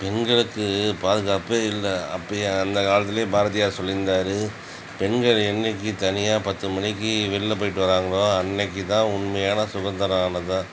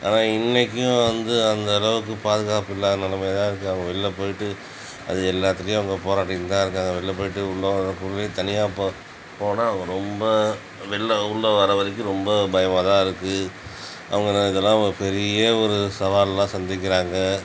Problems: constant background noise